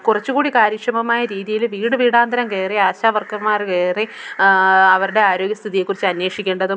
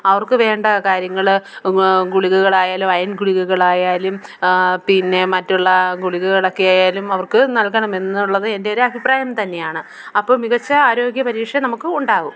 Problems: background sounds at intervals